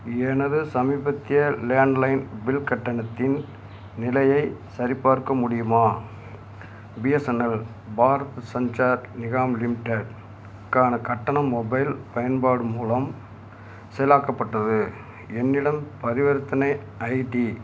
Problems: none marked